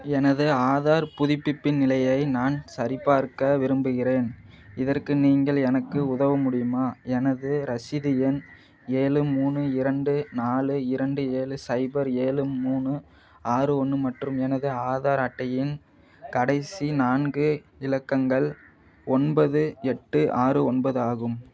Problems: none marked